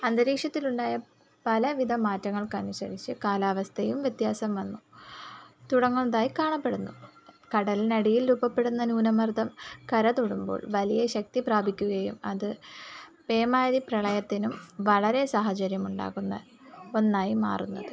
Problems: background sounds at intervals